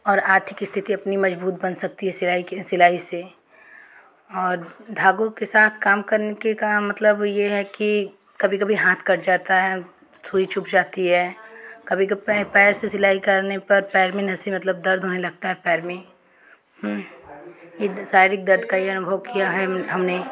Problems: background sounds at intervals